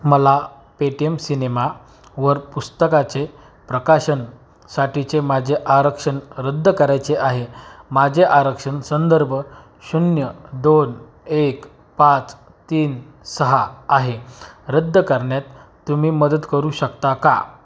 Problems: background sounds at intervals